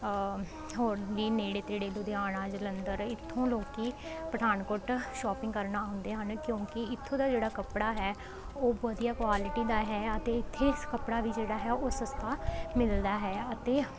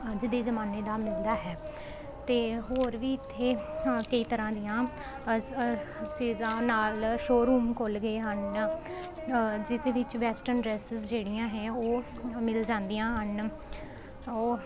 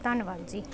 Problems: constant background noise